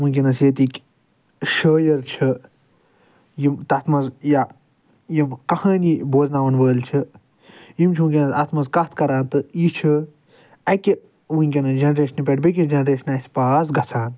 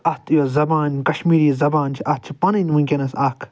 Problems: none marked